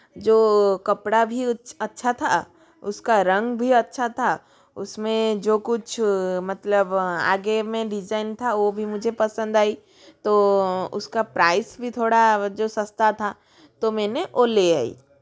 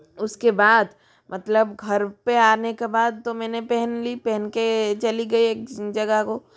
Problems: continuous background conversations